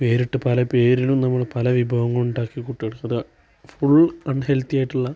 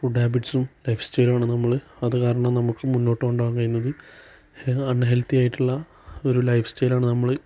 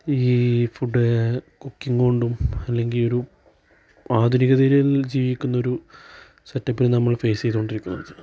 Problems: background sounds at intervals